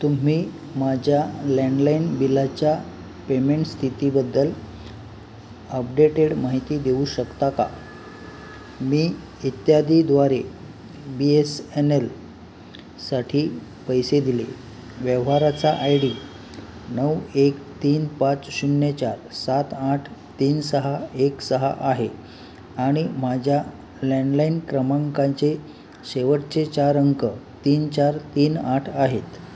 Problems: constant background noise